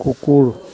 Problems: none marked